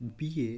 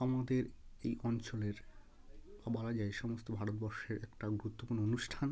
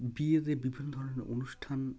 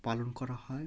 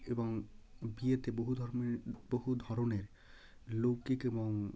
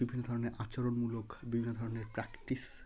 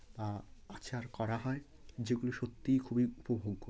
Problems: none marked